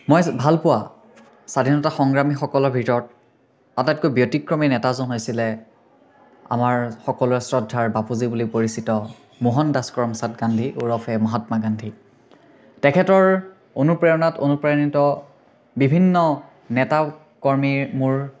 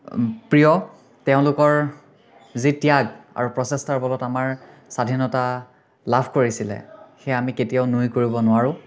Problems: none marked